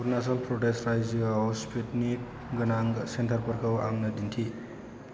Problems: constant background noise